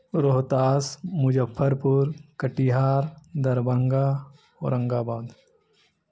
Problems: none marked